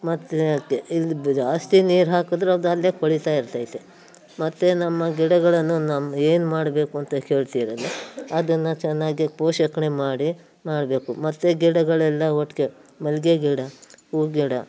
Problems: background conversations at intervals